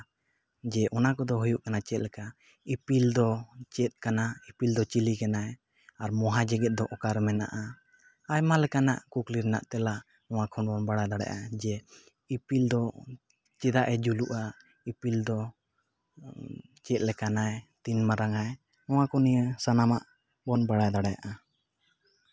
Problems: constant background noise, echo